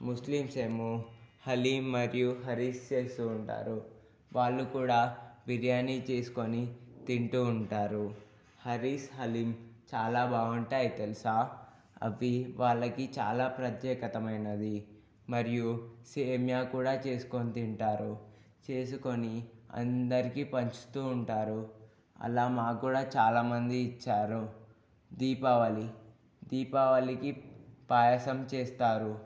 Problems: low volume